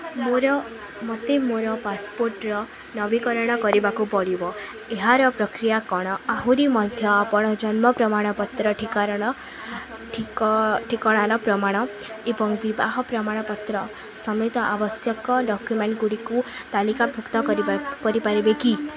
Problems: constant background noise, continuous background conversations